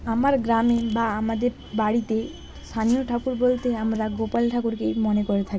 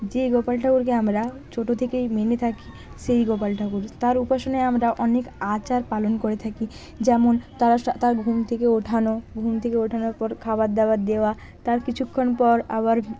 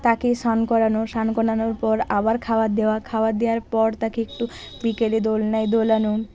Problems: none marked